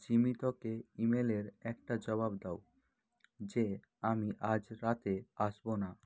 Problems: constant background noise